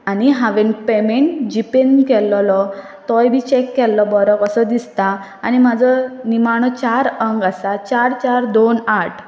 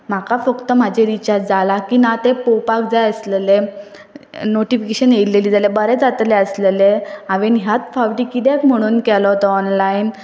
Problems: background sounds at intervals